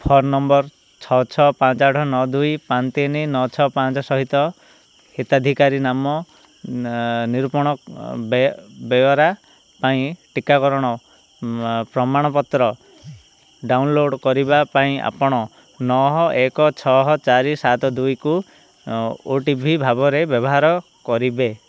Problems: none marked